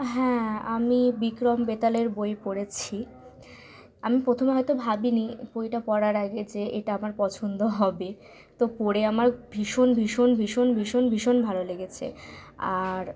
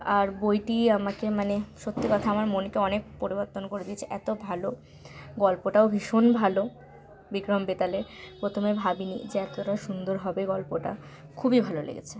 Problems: none marked